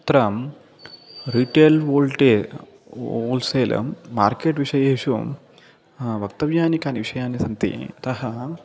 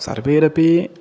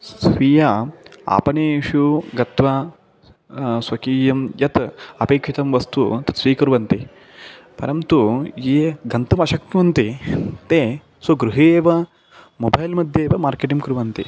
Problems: constant background noise